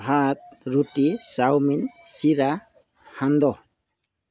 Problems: background sounds at intervals